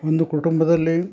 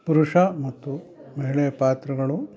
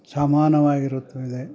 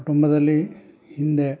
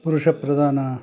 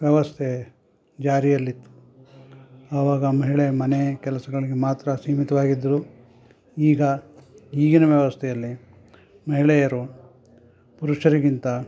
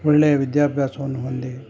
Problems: none marked